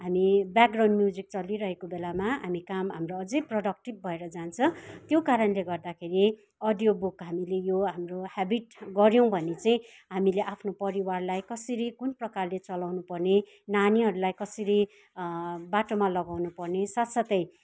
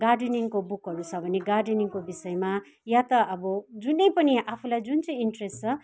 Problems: background sounds at intervals